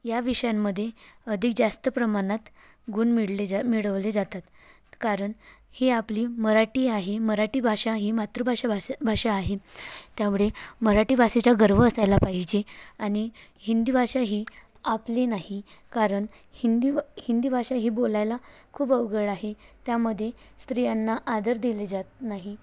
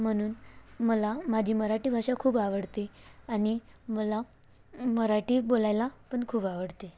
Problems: none marked